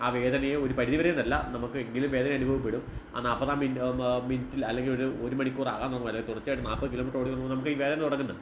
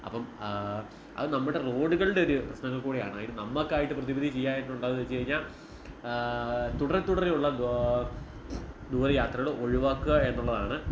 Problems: background sounds at intervals